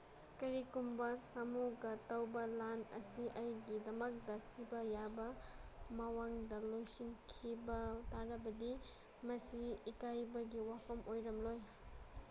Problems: background sounds at intervals